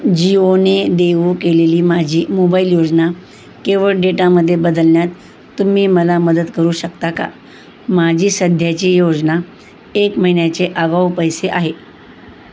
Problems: constant background noise